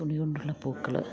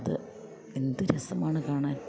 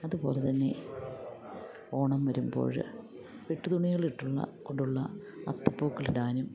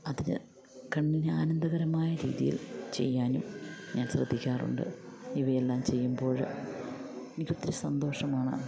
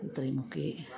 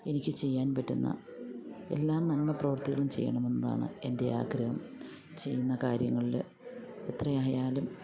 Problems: constant background noise